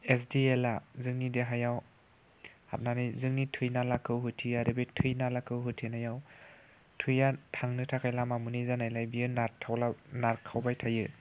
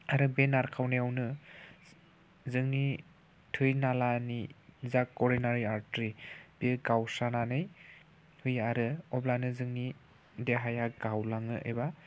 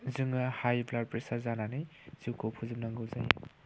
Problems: constant background noise